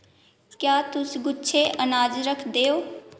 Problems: echo